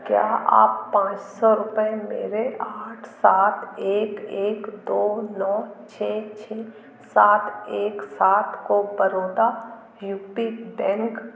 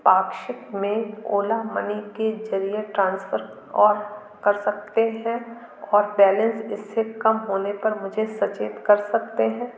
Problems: none marked